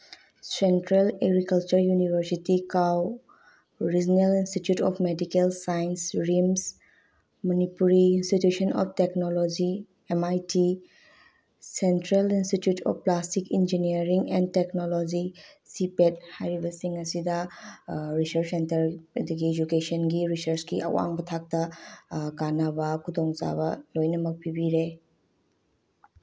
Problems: low volume